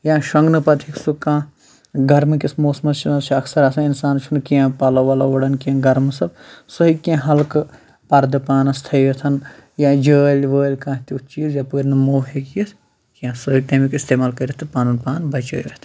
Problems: none marked